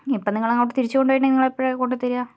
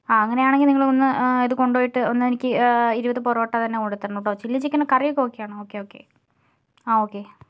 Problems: none marked